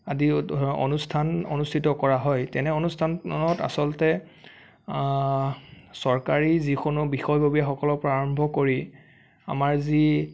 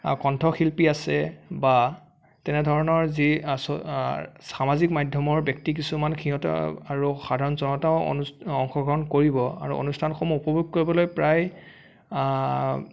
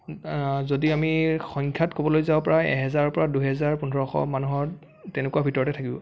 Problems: none marked